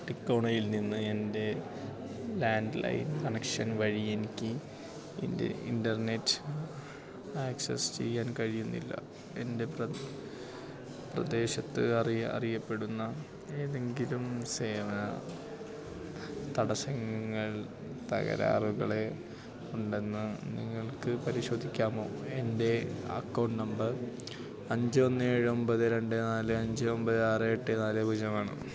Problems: constant background noise, low volume